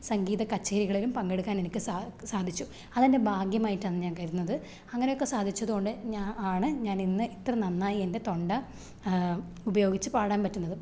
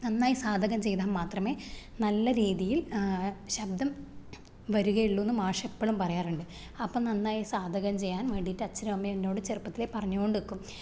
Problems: none marked